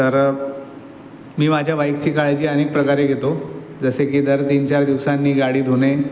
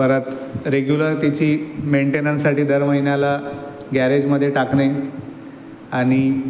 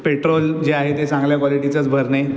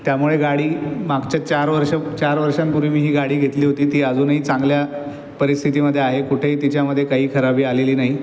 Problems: constant background noise